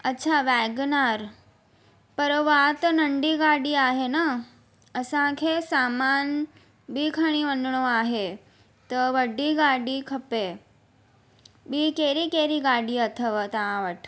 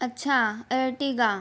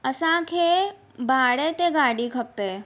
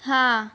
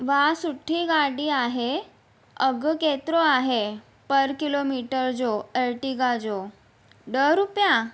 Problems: constant background noise